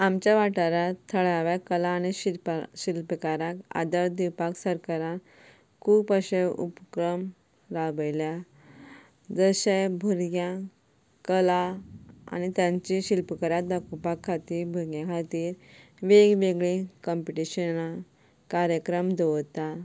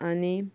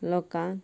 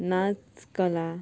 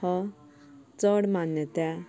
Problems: background sounds at intervals, background conversations at intervals